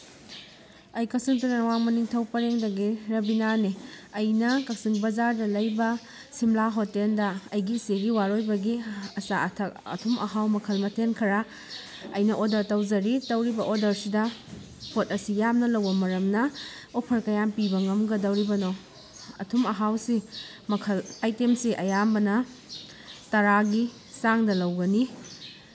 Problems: constant background noise